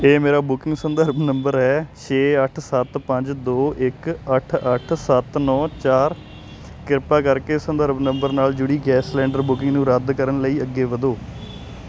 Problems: constant background noise